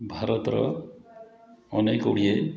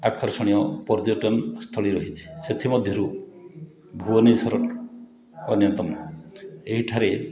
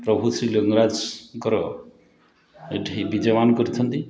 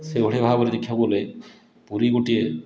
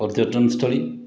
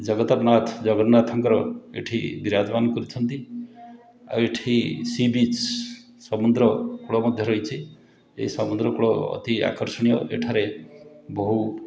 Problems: continuous background conversations